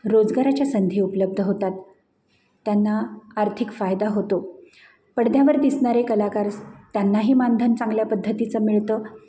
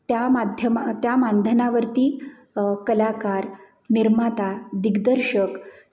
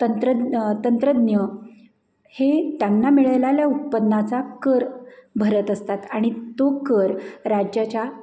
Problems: constant background noise, background conversations at intervals